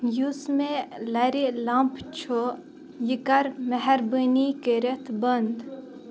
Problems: constant background noise